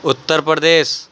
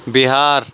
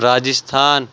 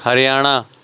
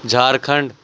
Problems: constant background noise